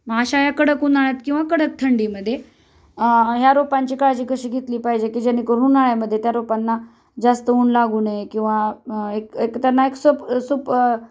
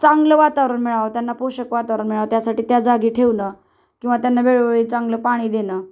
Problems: none marked